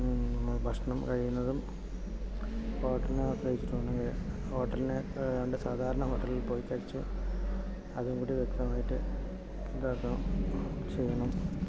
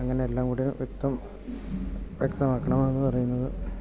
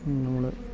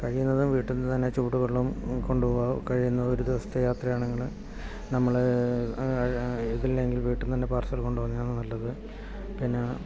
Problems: background sounds at intervals, low volume